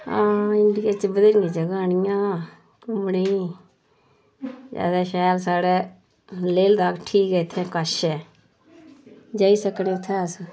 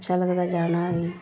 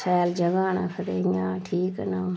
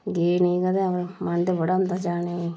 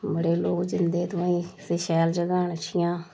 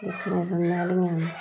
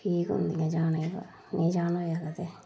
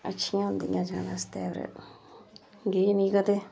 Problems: constant background noise, low volume